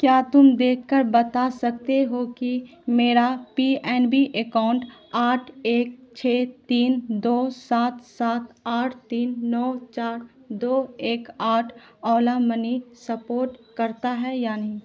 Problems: constant background noise